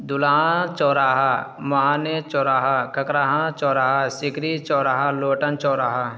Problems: constant background noise